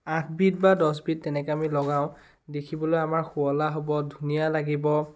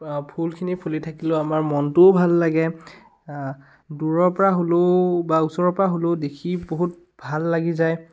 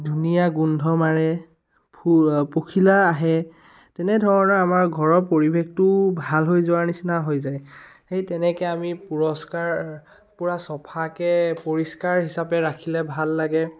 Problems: none marked